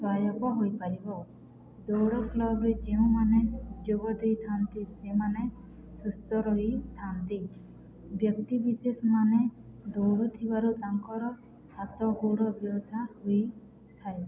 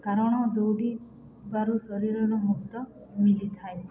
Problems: none marked